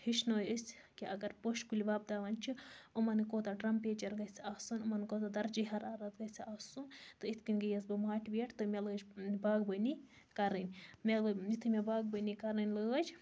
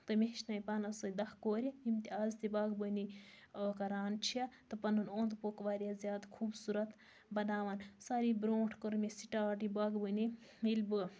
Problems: constant background noise